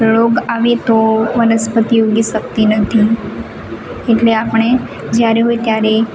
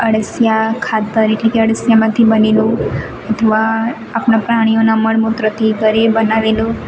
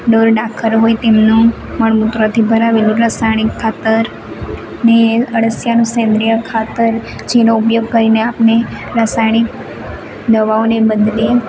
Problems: constant background noise